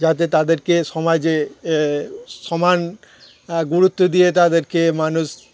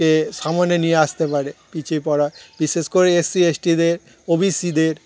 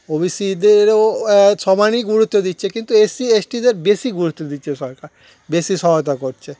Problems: none marked